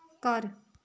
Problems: background conversations at intervals